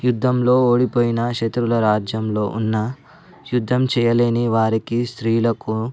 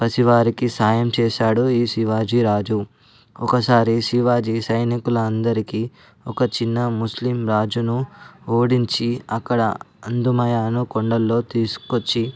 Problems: background sounds at intervals